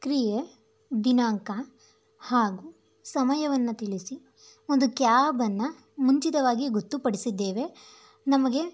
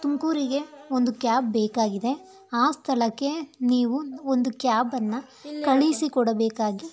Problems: none marked